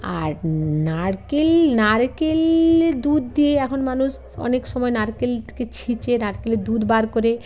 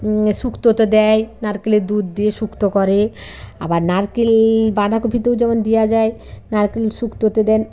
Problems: constant background noise